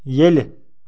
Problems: background sounds at intervals